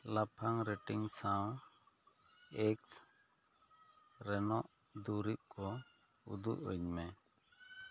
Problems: none marked